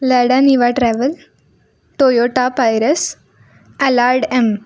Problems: none marked